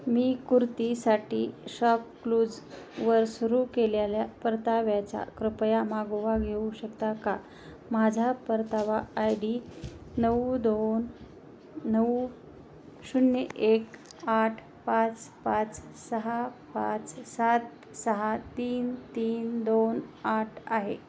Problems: background sounds at intervals